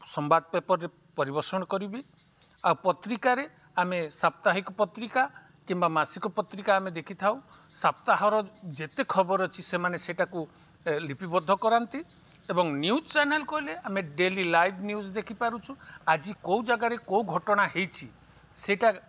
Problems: none marked